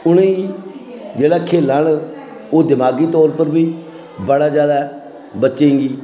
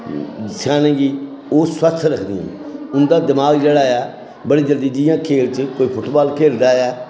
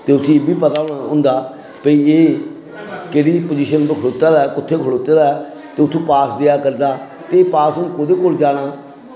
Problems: constant background noise